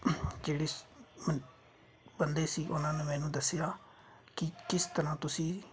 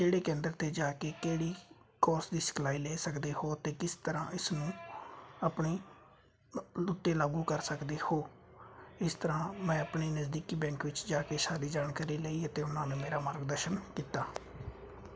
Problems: constant background noise